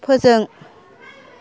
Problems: background conversations at intervals